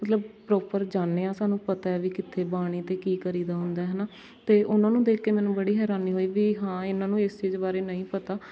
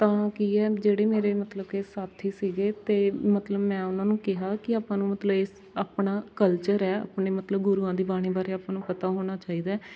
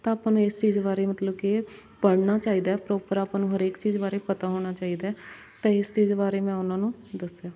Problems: constant background noise